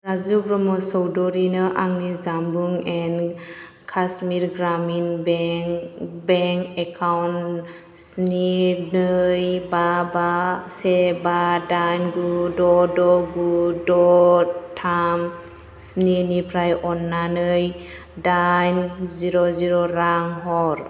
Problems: constant background noise